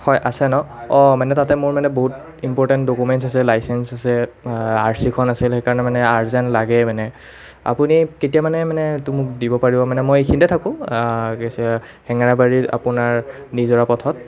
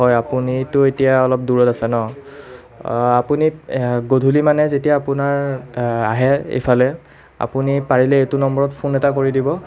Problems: continuous background conversations